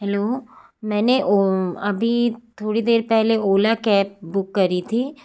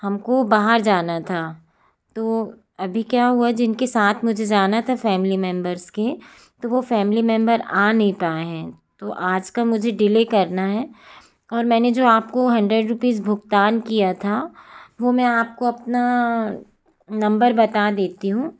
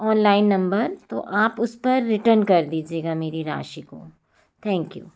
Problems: constant background noise